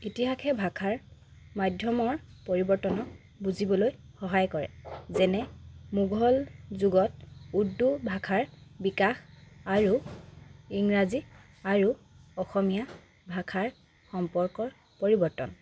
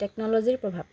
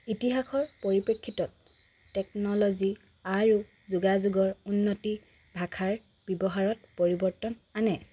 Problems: none marked